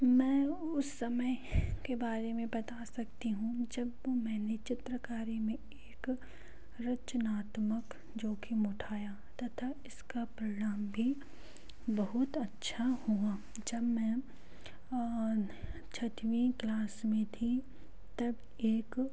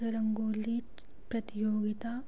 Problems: low volume